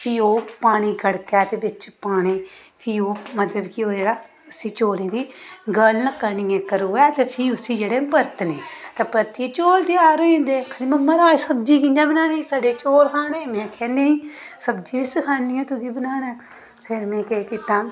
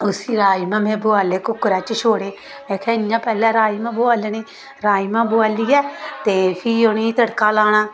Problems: background sounds at intervals